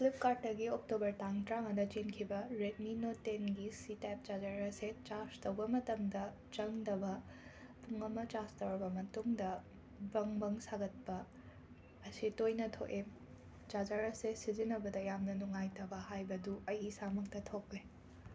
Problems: constant background noise